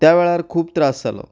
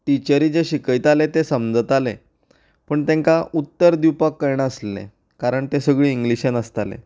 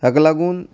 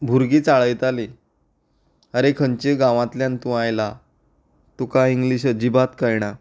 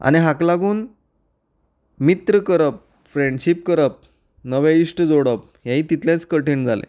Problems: background sounds at intervals